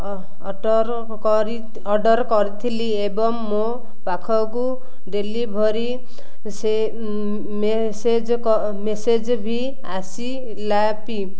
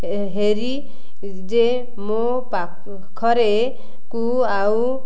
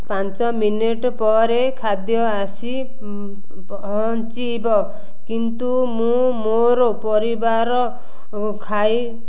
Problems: none marked